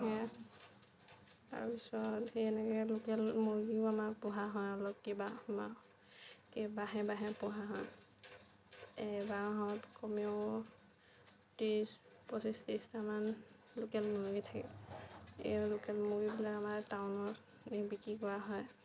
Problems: none marked